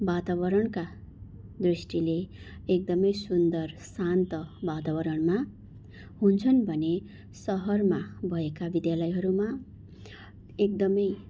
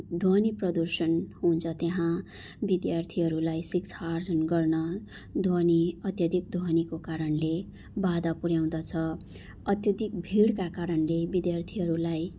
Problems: constant background noise